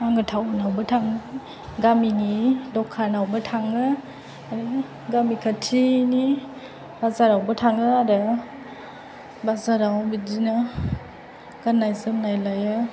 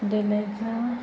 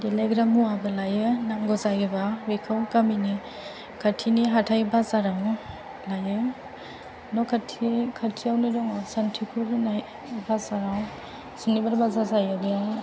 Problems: low volume